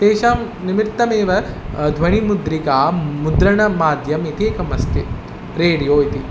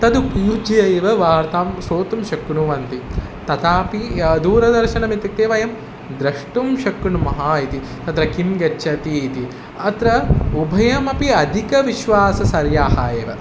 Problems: none marked